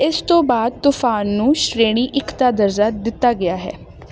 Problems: none marked